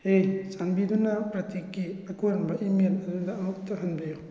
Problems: none marked